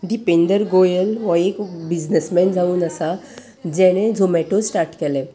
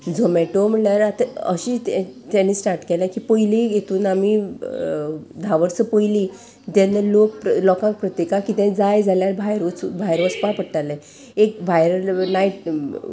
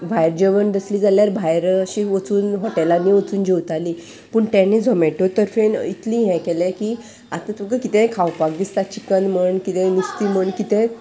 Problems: none marked